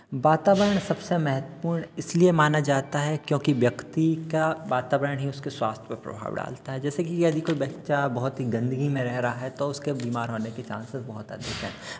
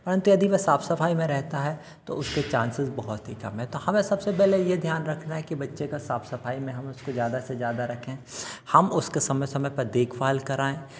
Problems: background sounds at intervals